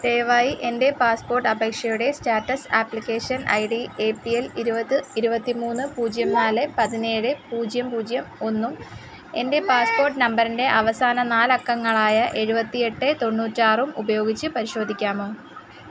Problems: none marked